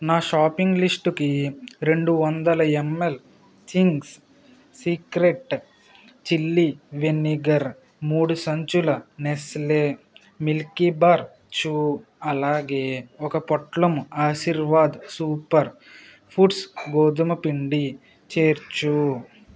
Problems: constant background noise